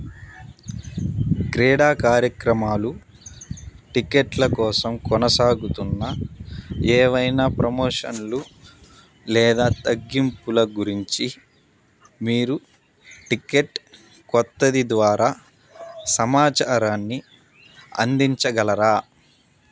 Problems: background sounds at intervals